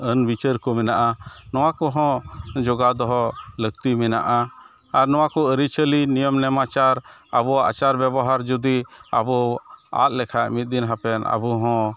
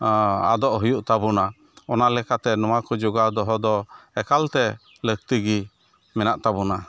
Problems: none marked